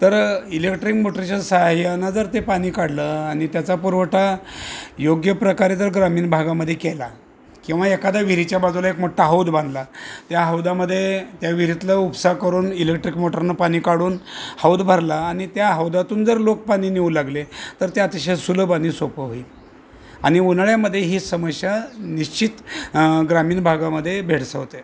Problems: constant background noise, background conversations at intervals